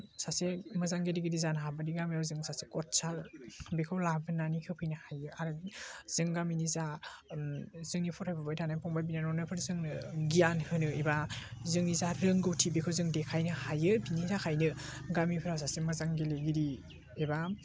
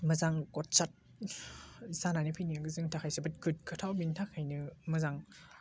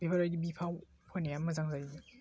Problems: constant background noise